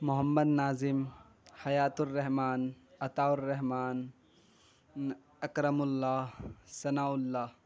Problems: none marked